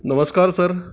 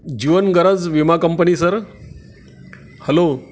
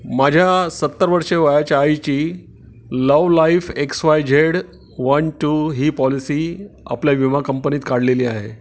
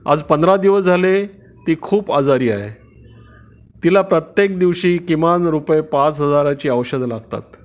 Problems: none marked